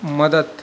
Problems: constant background noise